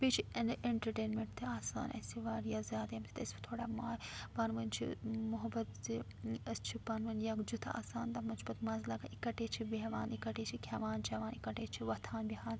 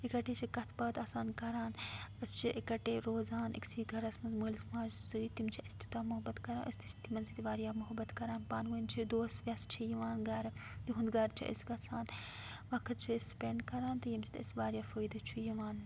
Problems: background sounds at intervals, low volume